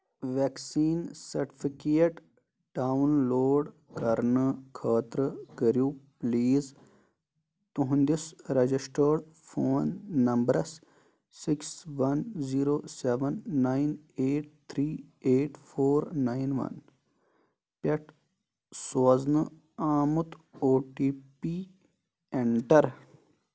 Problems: none marked